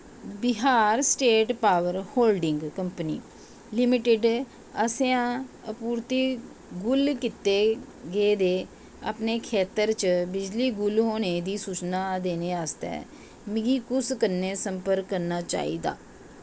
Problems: constant background noise